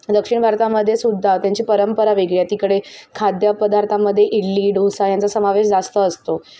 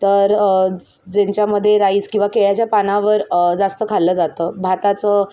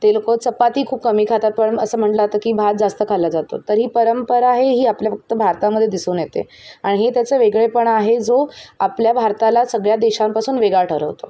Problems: background sounds at intervals, background conversations at intervals